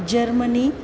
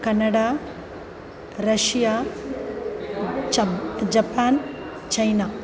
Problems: constant background noise